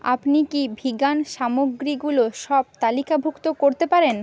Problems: constant background noise